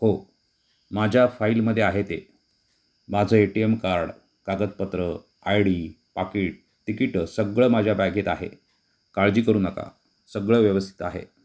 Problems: background sounds at intervals